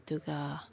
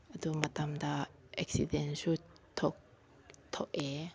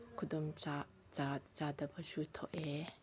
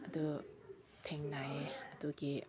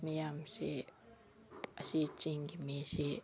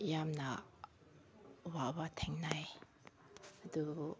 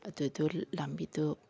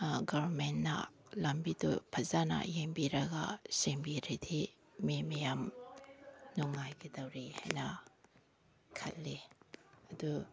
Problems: background conversations at intervals